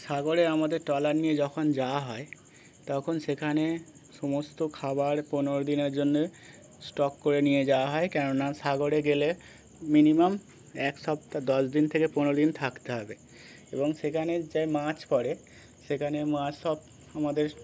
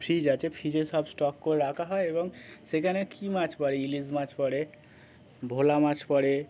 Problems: none marked